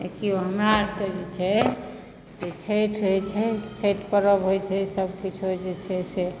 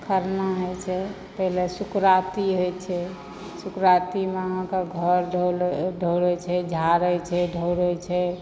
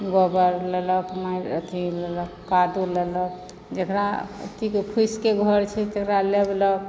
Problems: background sounds at intervals, background conversations at intervals